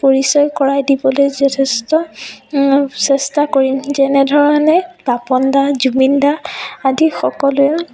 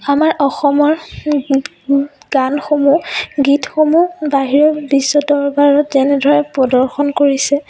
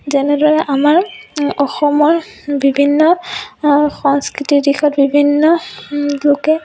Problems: background sounds at intervals, continuous background conversations